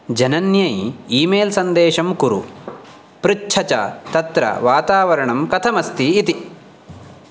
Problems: none marked